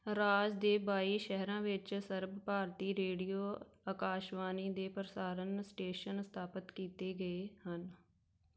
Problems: background sounds at intervals